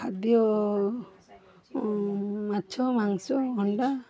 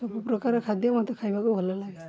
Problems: background sounds at intervals, continuous background conversations